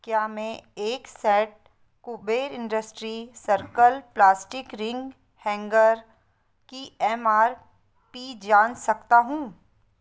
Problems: none marked